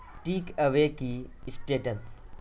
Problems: constant background noise